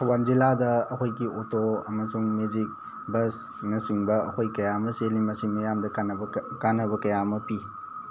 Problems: constant background noise